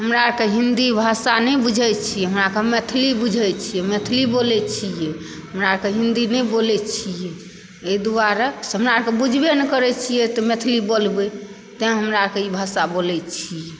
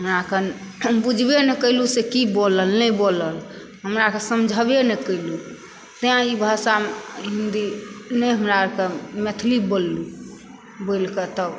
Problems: background sounds at intervals